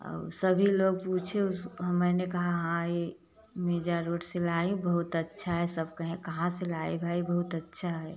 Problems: constant background noise